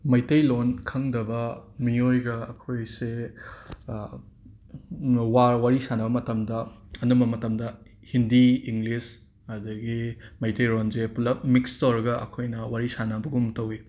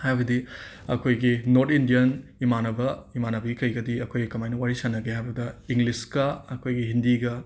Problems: background sounds at intervals